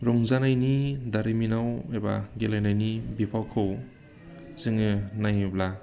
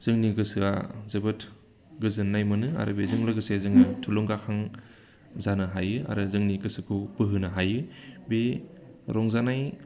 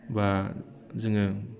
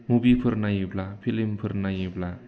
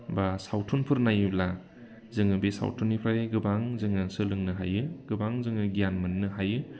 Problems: constant background noise